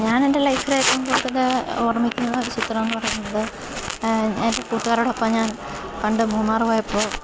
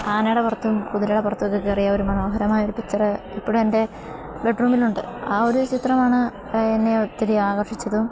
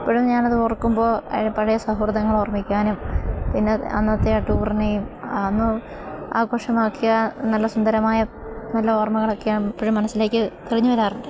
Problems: constant background noise